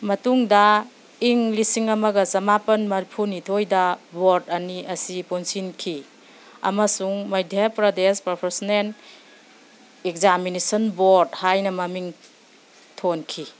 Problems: none marked